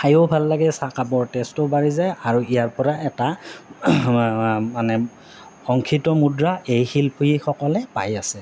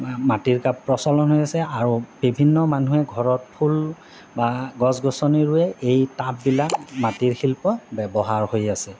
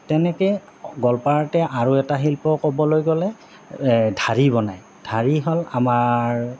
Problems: none marked